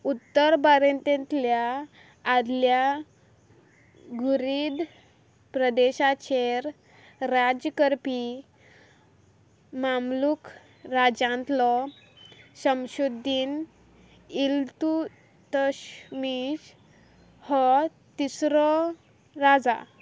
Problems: background sounds at intervals